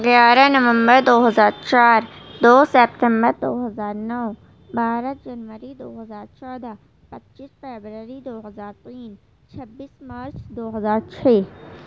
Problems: constant background noise, low volume